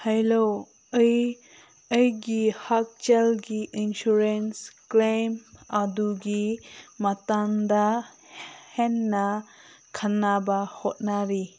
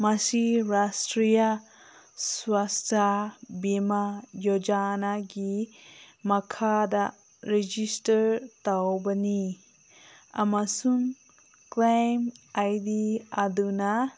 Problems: none marked